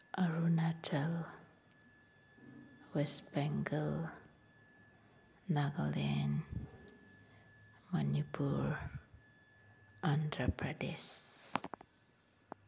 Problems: background sounds at intervals